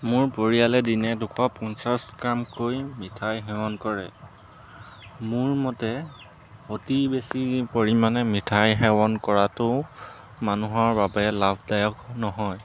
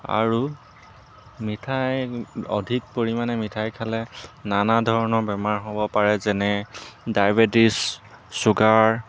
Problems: background sounds at intervals